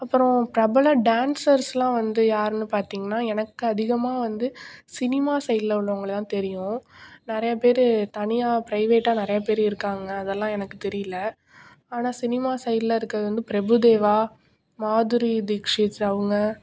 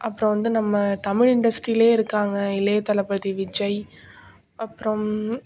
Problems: none marked